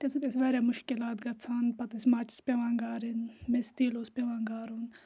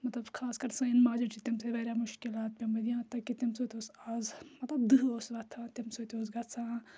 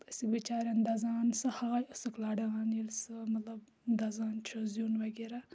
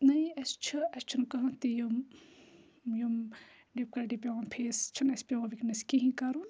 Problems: none marked